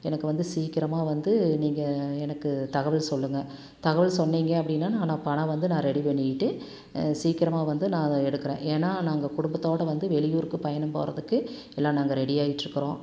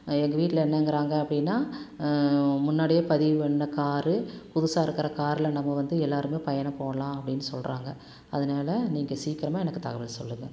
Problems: none marked